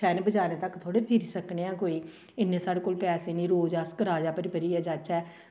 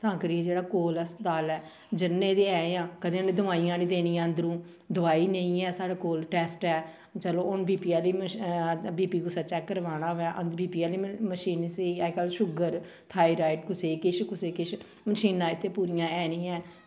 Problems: none marked